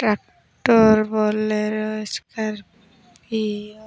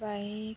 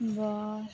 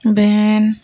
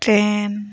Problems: constant background noise, low volume